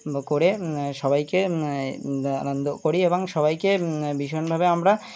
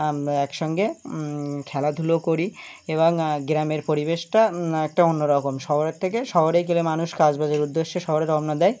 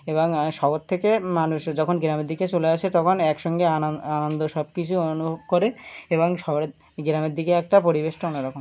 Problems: constant background noise